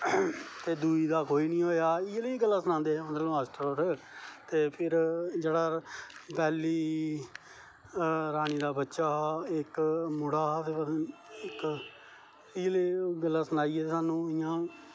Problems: constant background noise, low volume